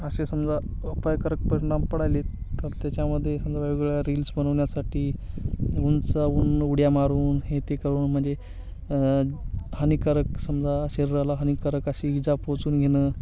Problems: constant background noise, continuous background conversations